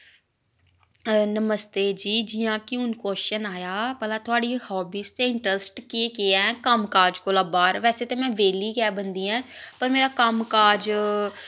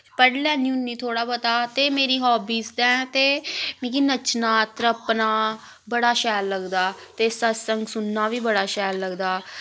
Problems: constant background noise